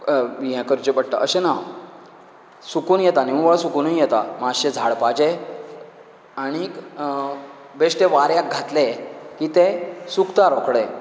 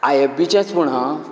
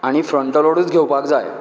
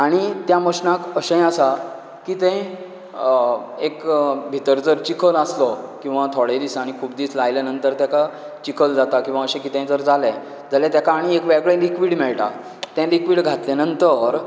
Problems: none marked